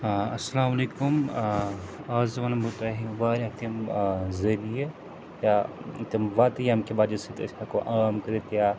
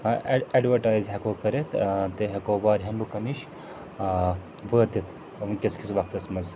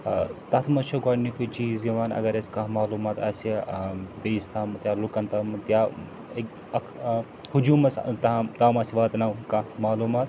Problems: constant background noise, background conversations at intervals